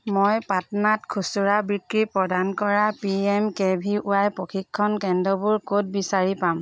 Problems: background sounds at intervals